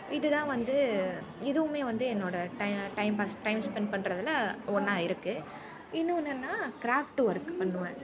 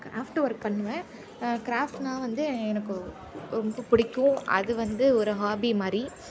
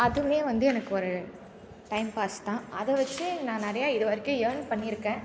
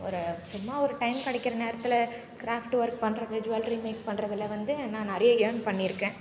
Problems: constant background noise